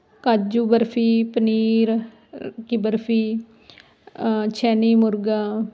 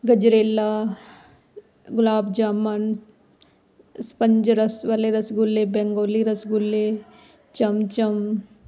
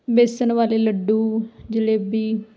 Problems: constant background noise